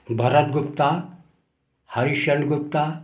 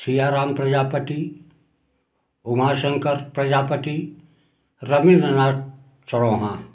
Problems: background sounds at intervals